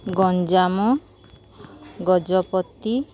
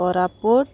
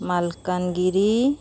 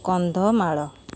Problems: none marked